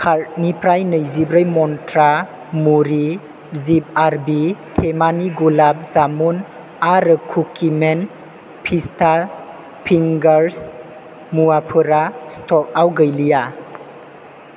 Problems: constant background noise